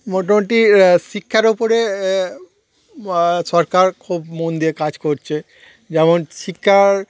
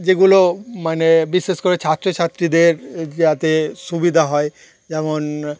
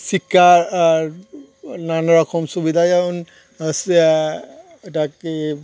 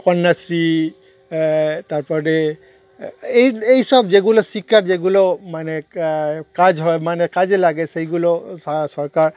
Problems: none marked